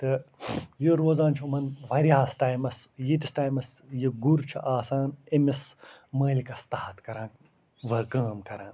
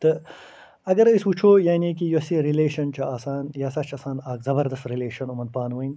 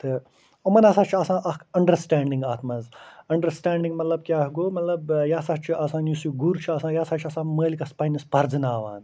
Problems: none marked